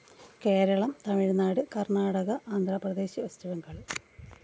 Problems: constant background noise, low volume